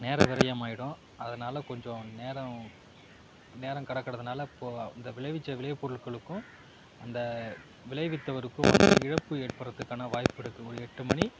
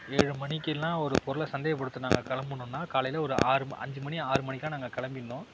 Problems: constant background noise, low volume